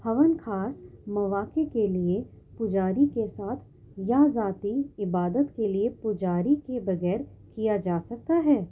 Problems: background sounds at intervals, low volume